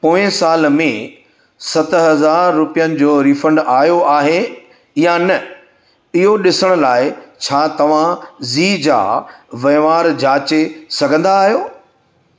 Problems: none marked